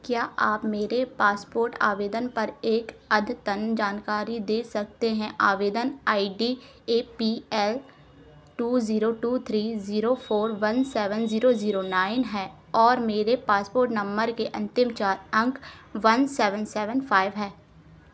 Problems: constant background noise